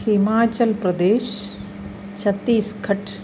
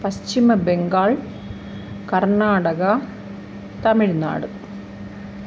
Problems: constant background noise